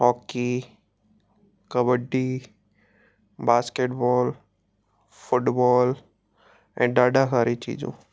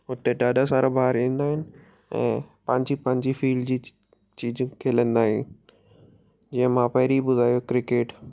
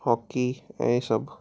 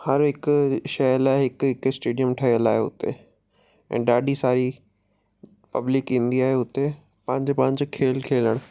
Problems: background sounds at intervals